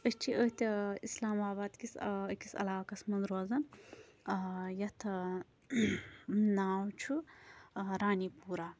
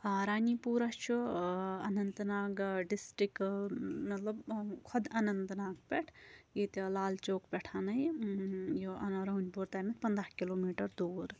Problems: none marked